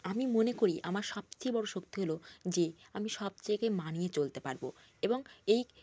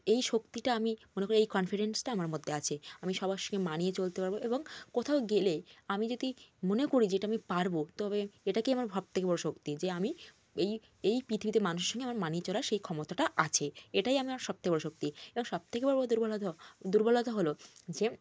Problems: constant background noise